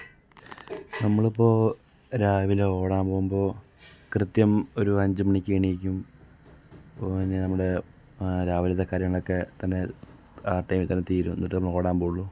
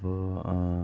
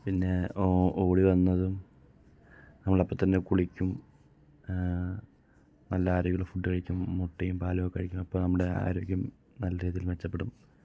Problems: low volume